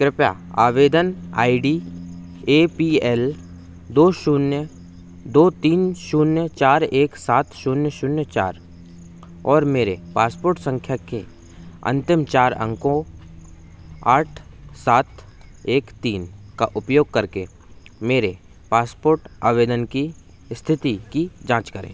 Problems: none marked